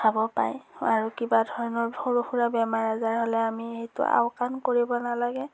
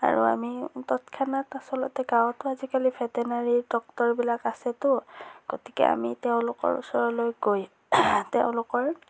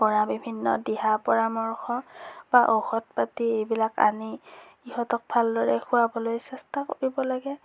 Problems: none marked